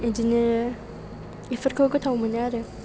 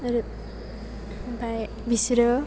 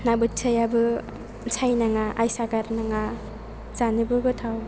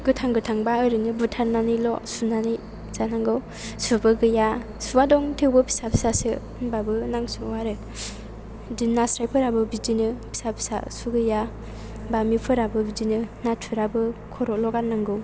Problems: background sounds at intervals